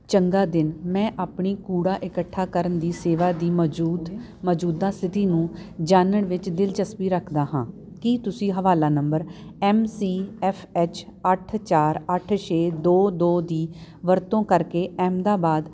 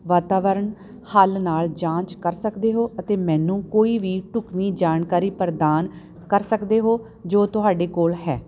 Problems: none marked